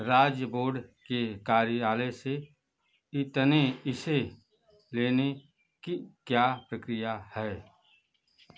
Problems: constant background noise